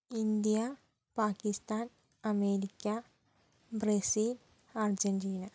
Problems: low volume